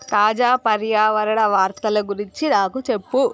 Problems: background sounds at intervals